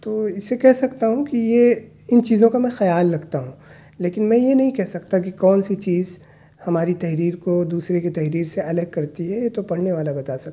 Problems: none marked